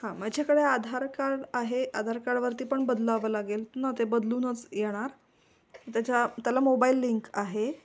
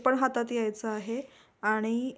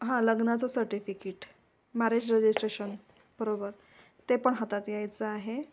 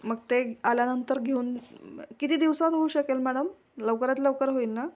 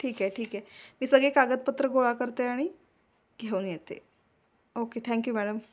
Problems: background sounds at intervals